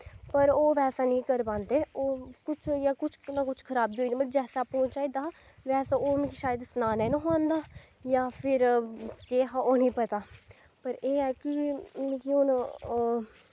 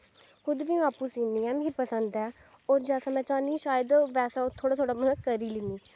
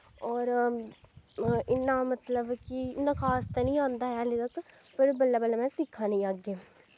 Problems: background sounds at intervals